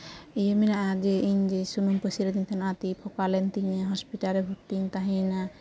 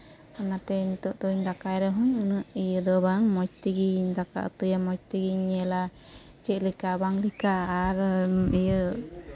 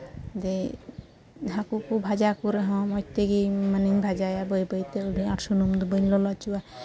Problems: none marked